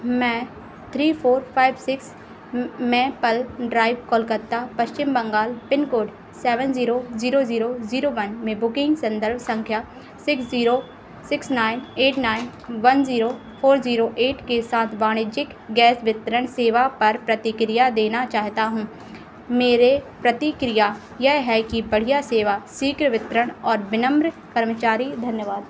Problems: constant background noise